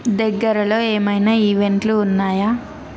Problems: background conversations at intervals